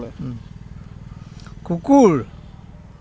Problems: none marked